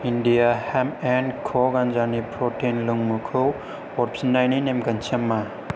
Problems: low volume